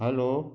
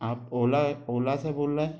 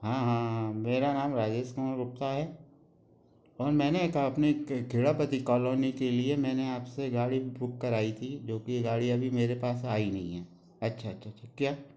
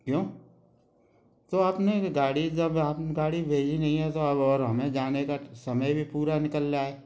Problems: none marked